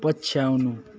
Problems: continuous background conversations